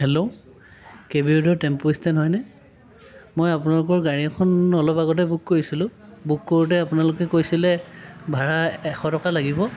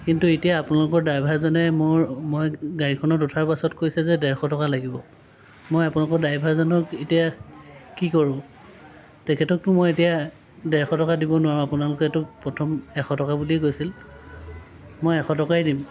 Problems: none marked